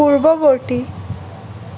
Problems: constant background noise